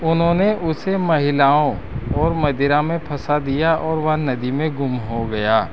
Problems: none marked